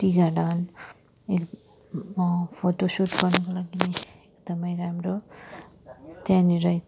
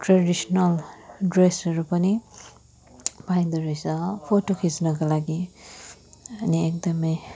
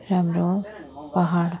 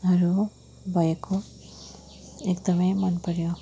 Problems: continuous background conversations, low volume